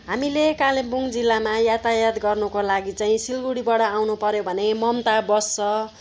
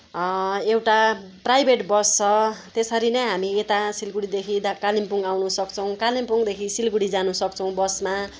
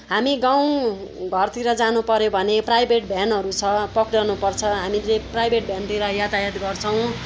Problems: constant background noise